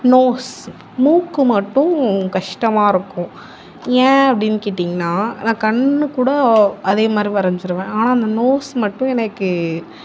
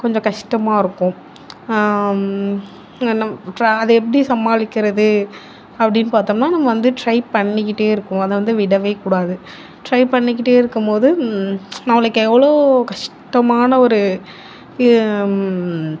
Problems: none marked